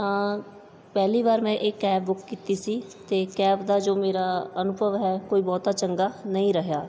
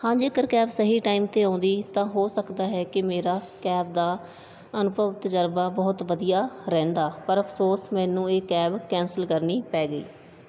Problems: background sounds at intervals